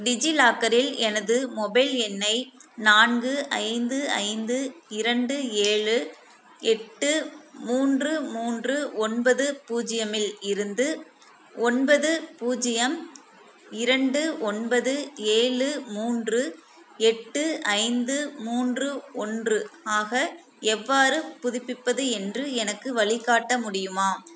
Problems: constant background noise